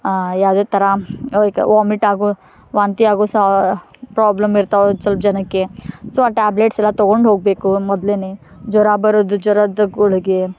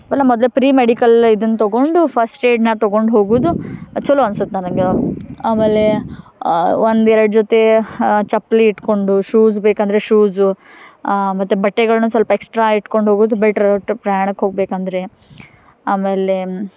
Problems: none marked